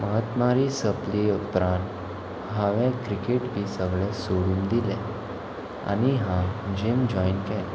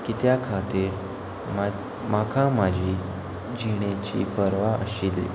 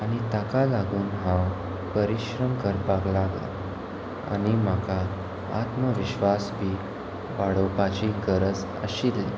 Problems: none marked